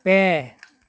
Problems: none marked